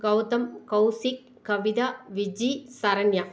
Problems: none marked